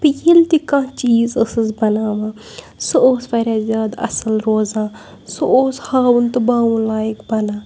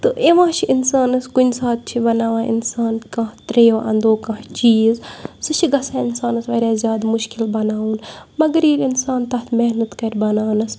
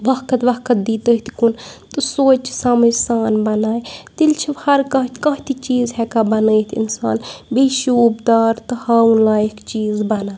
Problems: background sounds at intervals